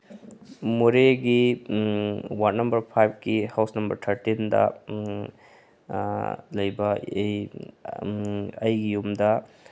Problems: background sounds at intervals, low volume